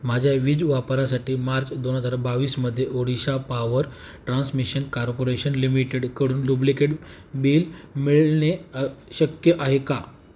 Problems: background sounds at intervals